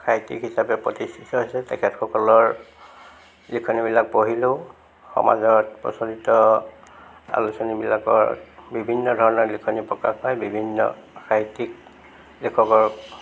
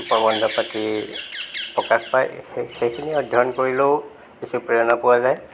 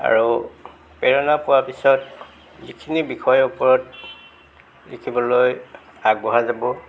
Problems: background sounds at intervals